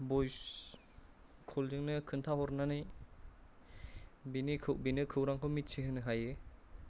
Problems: low volume